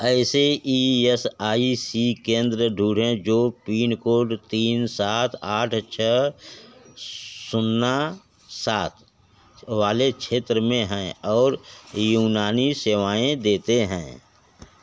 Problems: none marked